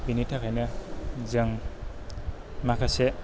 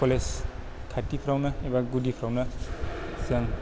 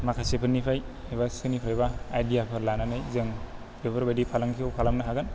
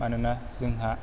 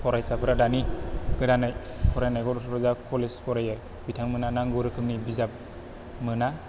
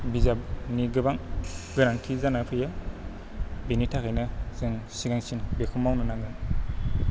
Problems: low volume